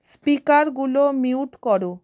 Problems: none marked